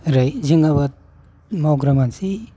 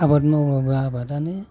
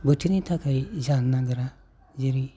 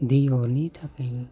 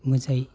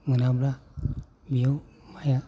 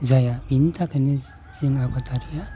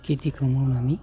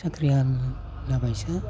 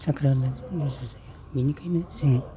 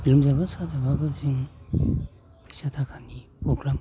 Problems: constant background noise